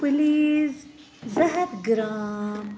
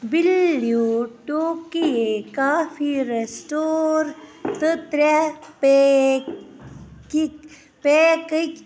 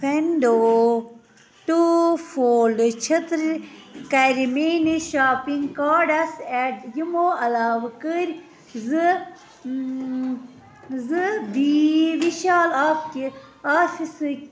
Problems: constant background noise, continuous background conversations